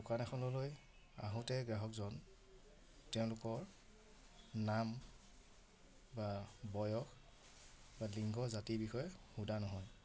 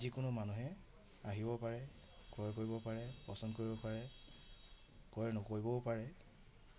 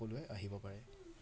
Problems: none marked